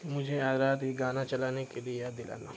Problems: constant background noise, low volume